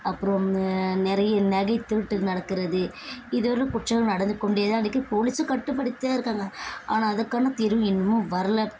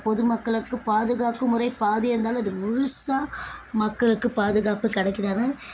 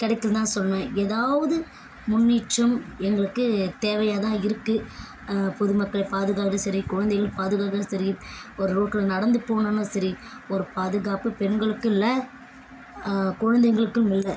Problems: constant background noise